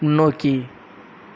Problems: none marked